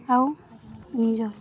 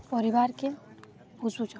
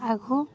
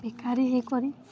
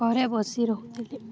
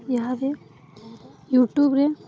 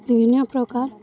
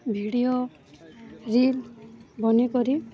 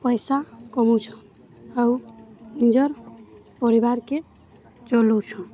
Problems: constant background noise, continuous background conversations